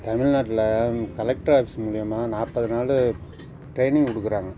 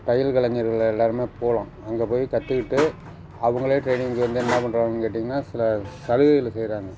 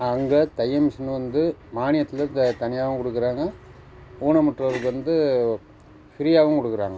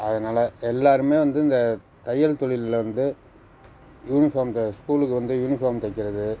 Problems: background sounds at intervals